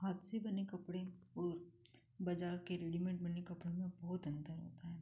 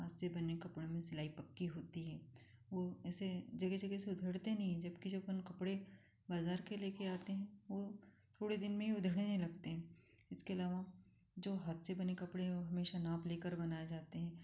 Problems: none marked